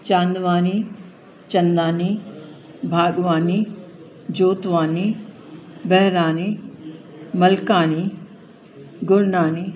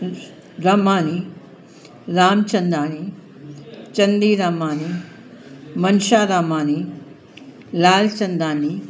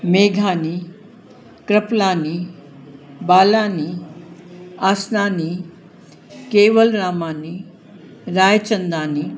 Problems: constant background noise, echo